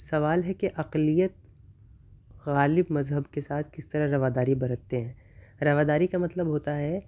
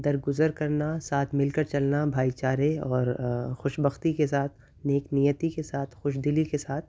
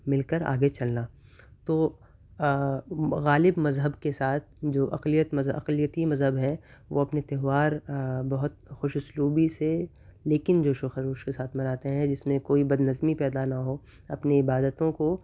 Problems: none marked